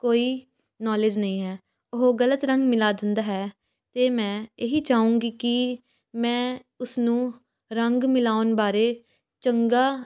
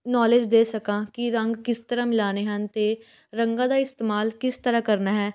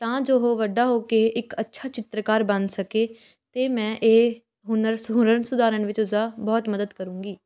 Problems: background sounds at intervals, background conversations at intervals